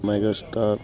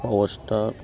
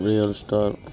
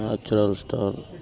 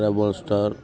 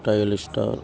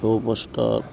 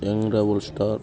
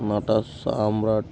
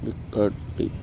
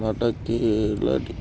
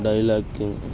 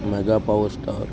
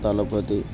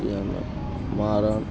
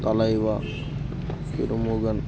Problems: constant background noise, continuous background conversations